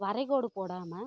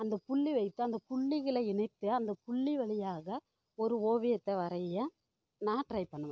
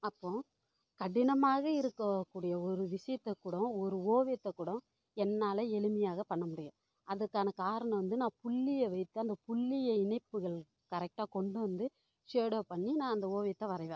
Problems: none marked